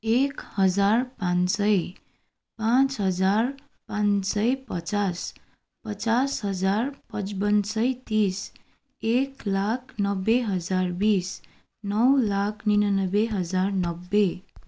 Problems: none marked